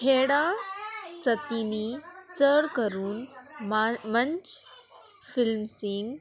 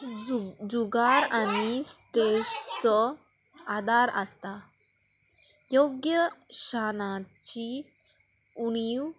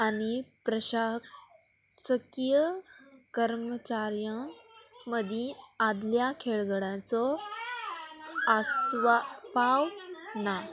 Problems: constant background noise